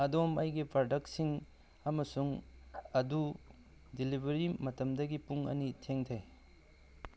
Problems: background sounds at intervals